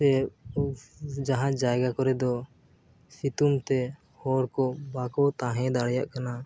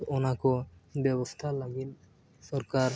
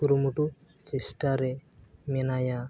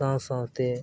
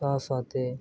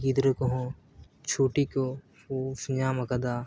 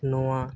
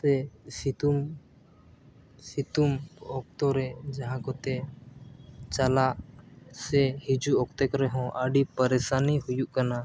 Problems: none marked